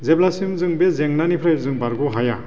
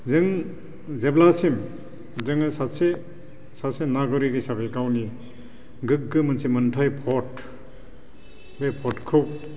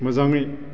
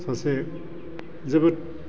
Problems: constant background noise